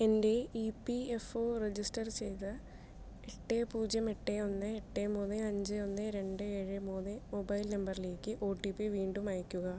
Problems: low volume